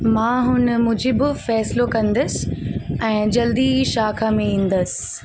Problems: constant background noise